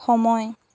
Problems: constant background noise